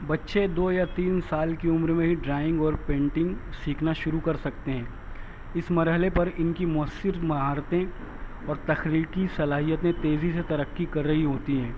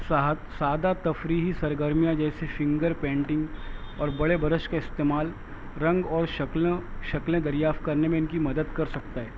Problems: constant background noise